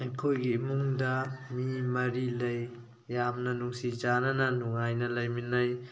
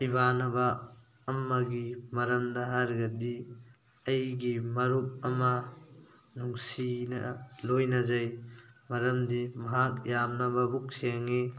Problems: background sounds at intervals